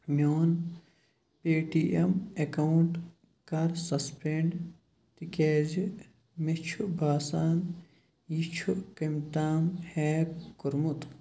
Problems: none marked